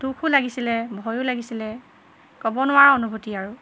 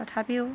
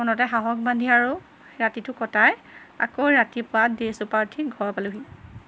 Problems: constant background noise